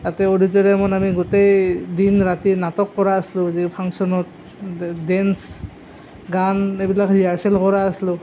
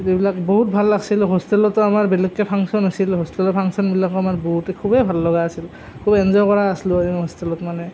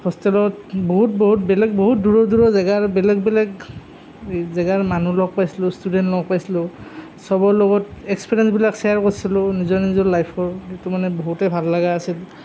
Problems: none marked